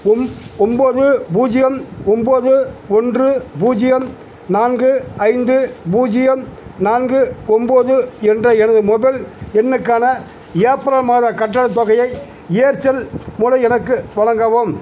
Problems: none marked